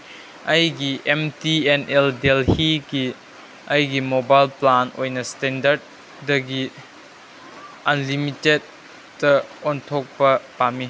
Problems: background sounds at intervals